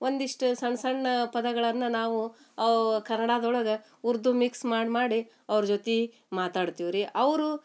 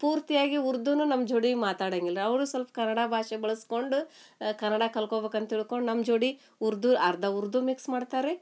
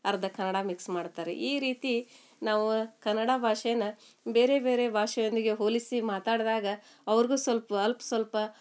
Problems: none marked